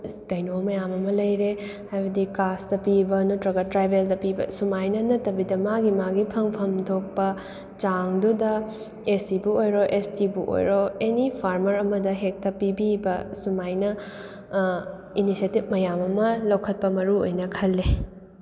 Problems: none marked